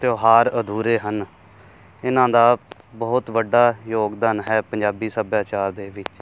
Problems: constant background noise